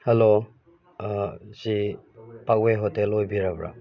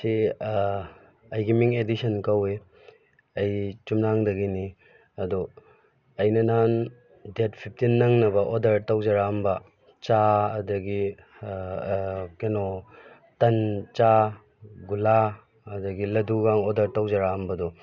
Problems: background sounds at intervals